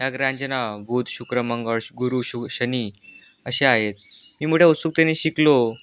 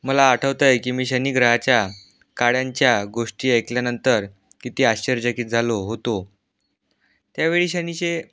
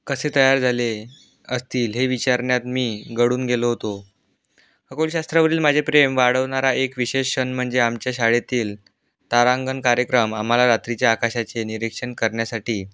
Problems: background sounds at intervals